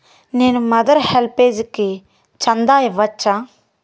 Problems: none marked